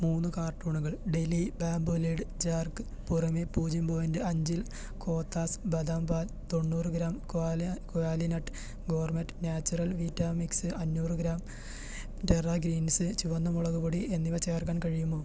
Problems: constant background noise, low volume